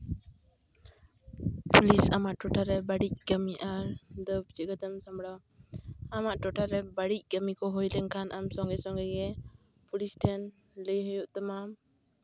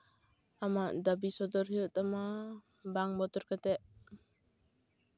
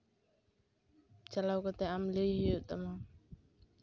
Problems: none marked